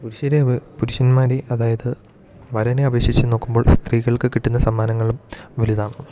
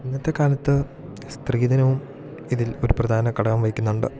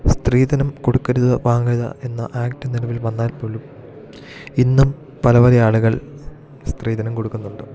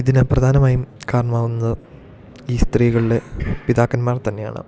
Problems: constant background noise